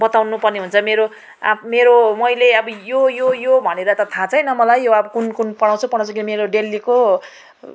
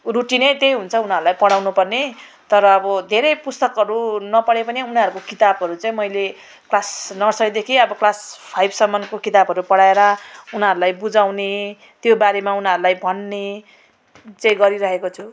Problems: background sounds at intervals